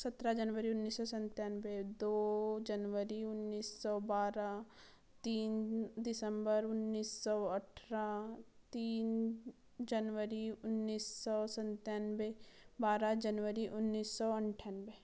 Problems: low volume